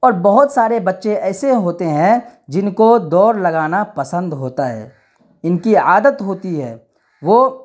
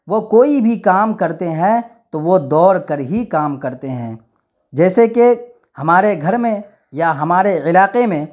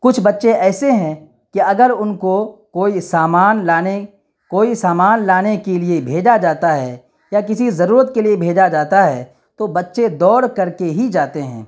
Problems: none marked